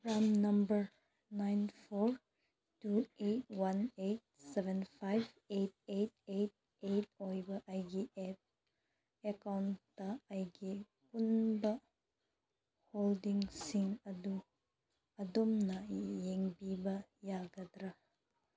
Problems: none marked